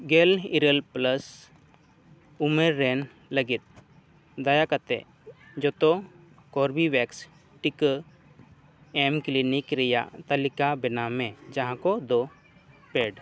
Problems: none marked